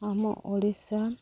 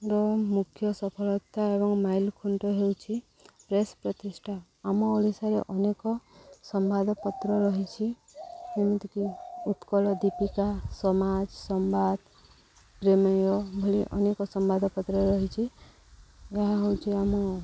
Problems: background sounds at intervals